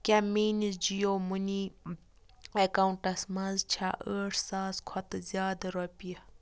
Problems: constant background noise